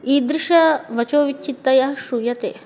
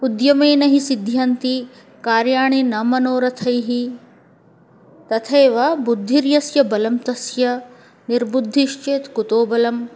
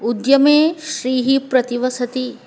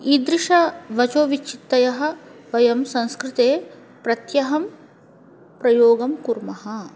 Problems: background conversations at intervals